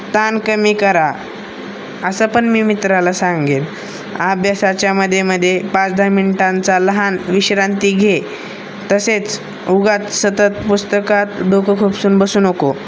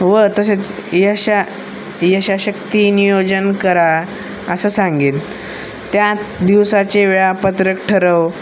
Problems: constant background noise